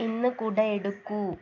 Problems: low volume